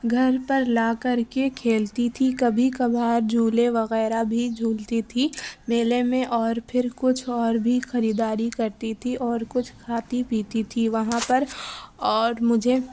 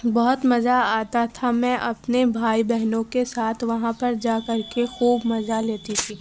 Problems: background sounds at intervals